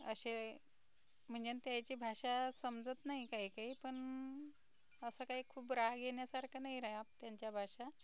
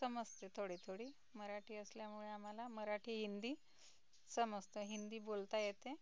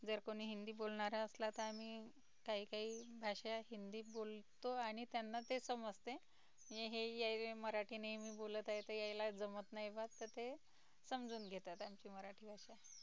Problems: constant background noise, low volume